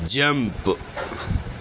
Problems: none marked